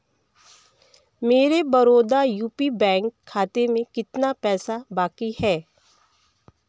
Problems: none marked